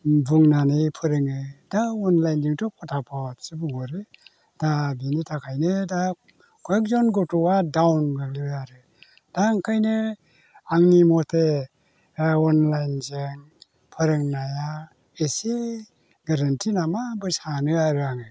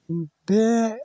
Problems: none marked